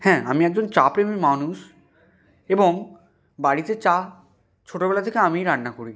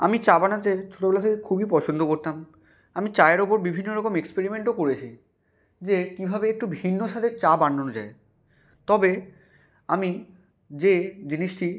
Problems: background sounds at intervals